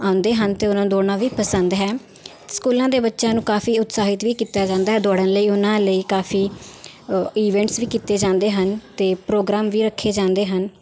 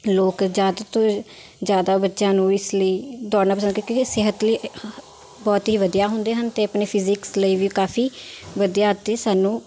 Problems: none marked